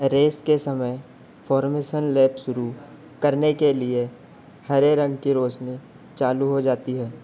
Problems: constant background noise